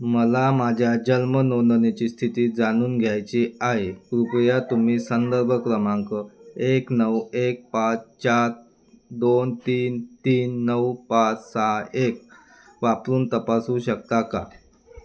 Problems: background sounds at intervals